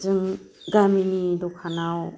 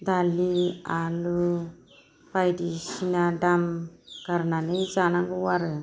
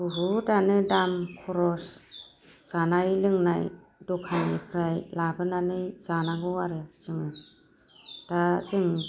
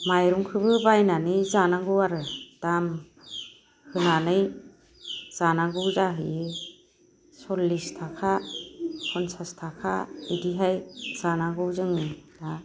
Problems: none marked